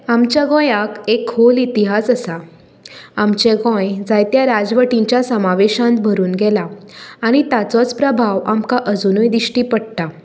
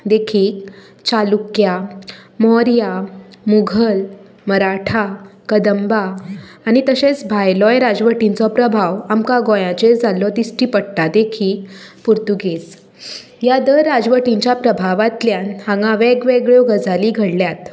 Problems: none marked